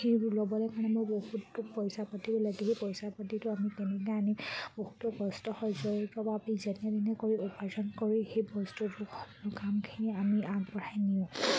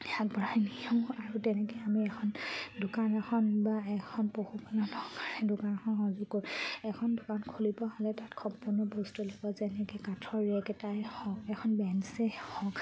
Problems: background sounds at intervals